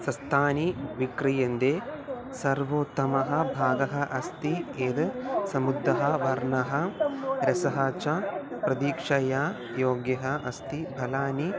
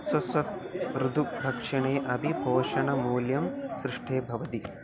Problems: background sounds at intervals